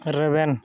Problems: constant background noise, background conversations at intervals